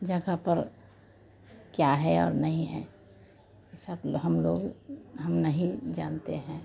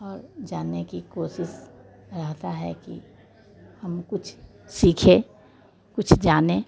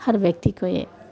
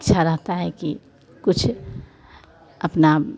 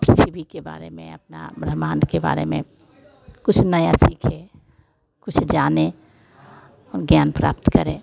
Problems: constant background noise